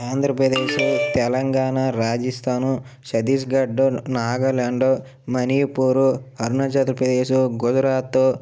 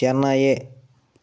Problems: none marked